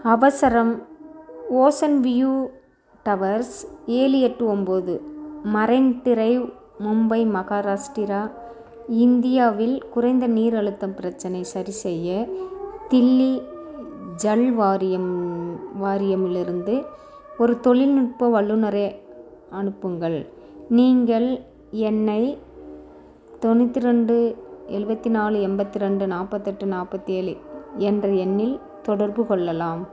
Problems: continuous background conversations